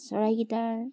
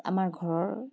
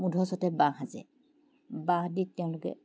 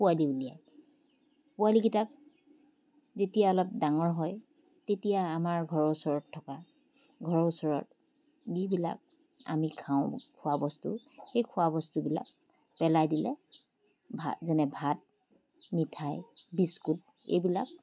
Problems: background sounds at intervals